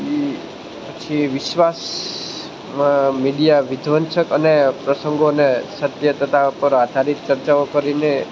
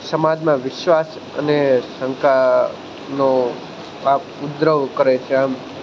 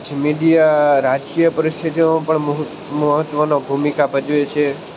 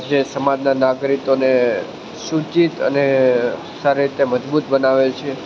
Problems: constant background noise